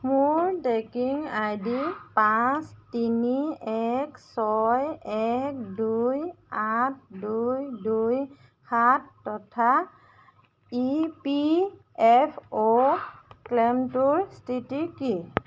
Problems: constant background noise